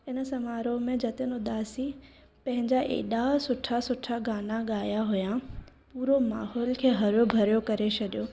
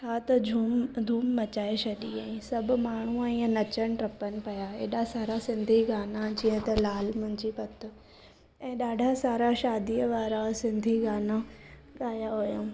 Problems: none marked